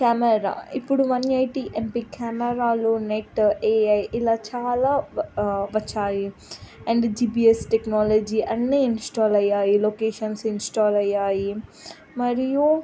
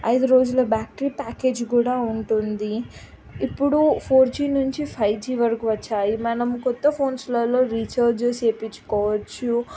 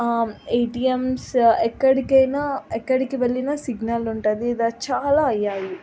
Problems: none marked